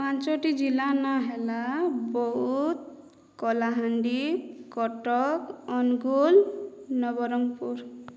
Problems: none marked